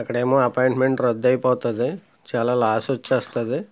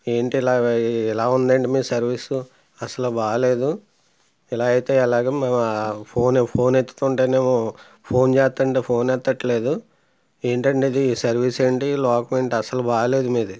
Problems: background sounds at intervals